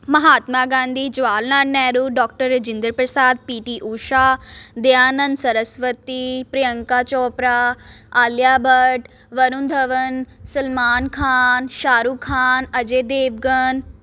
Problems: constant background noise